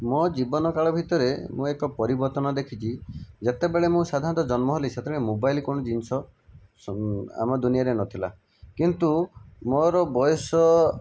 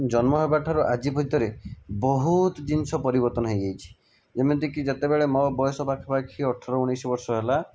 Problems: none marked